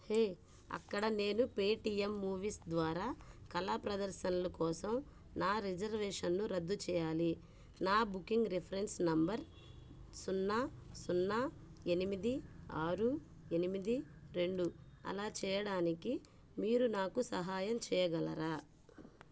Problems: none marked